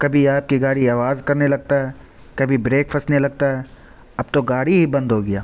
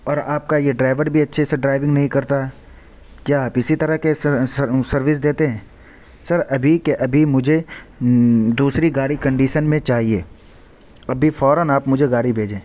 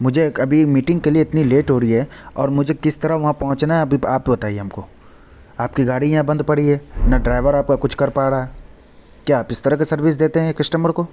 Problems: none marked